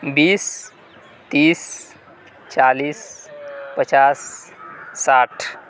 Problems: constant background noise